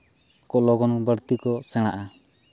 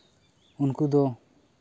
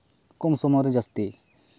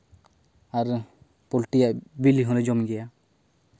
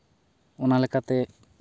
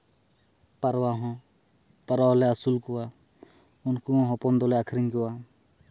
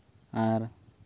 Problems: background sounds at intervals